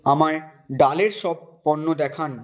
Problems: none marked